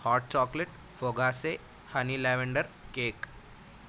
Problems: constant background noise